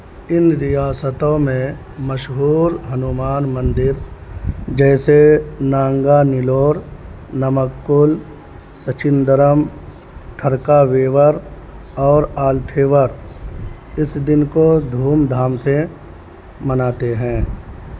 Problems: constant background noise